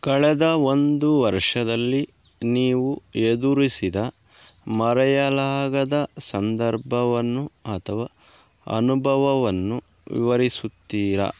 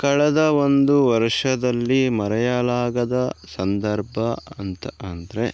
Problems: background sounds at intervals